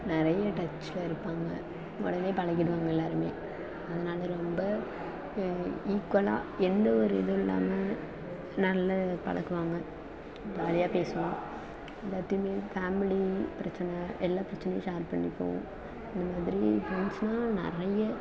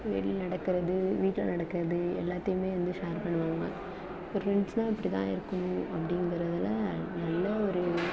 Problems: constant background noise, low volume